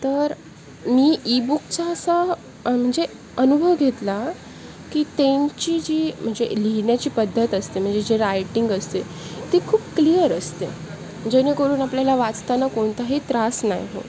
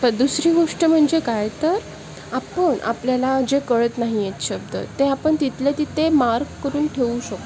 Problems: constant background noise, background conversations at intervals